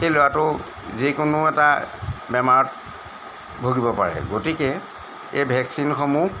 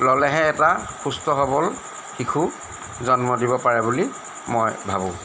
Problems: constant background noise